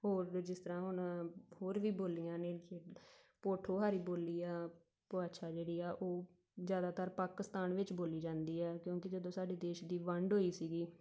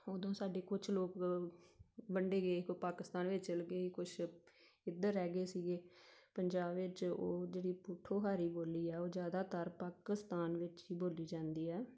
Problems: background sounds at intervals